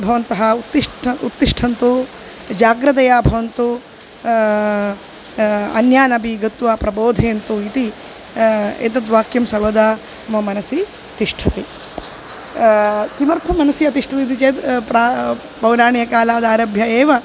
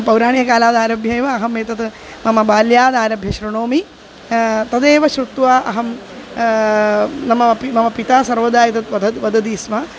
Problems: constant background noise